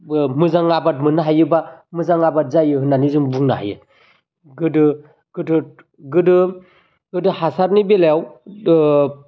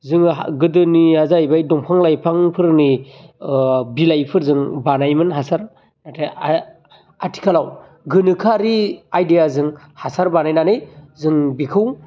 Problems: none marked